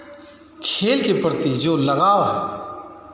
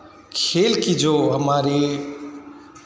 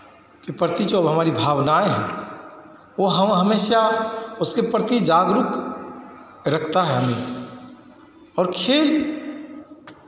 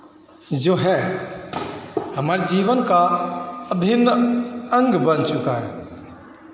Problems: constant background noise, echo